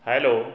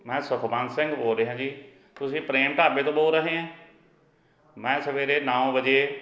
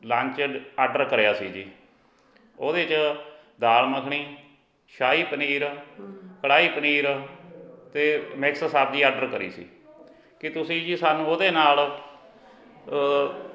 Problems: continuous background conversations